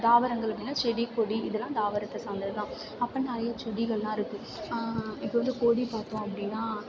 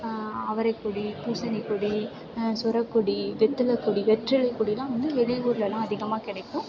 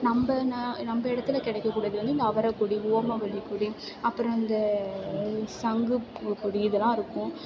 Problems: background sounds at intervals